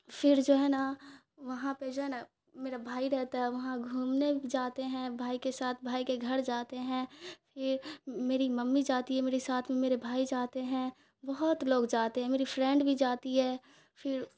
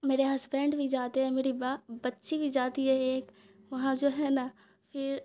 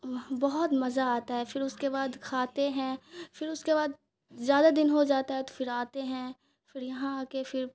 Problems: none marked